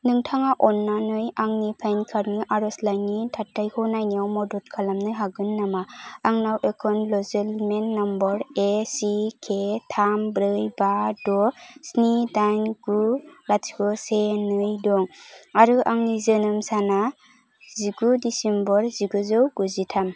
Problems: none marked